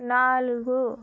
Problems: none marked